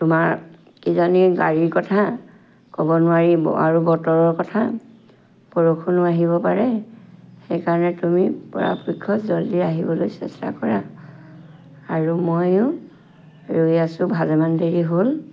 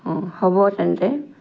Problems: background sounds at intervals